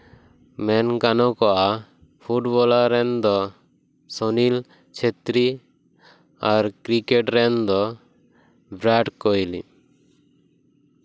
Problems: constant background noise